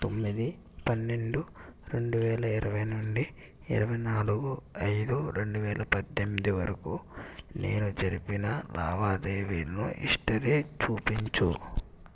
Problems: constant background noise